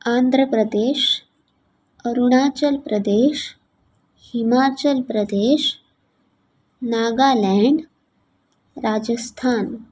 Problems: background sounds at intervals